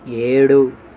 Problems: constant background noise